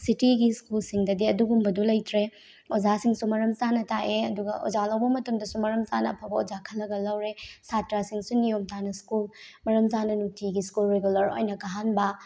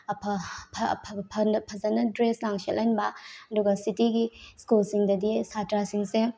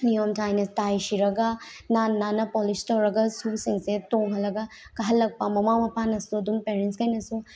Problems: none marked